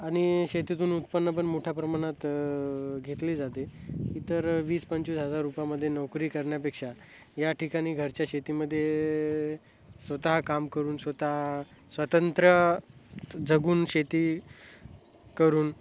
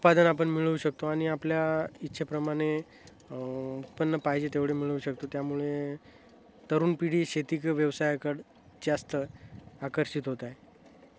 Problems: constant background noise, continuous background conversations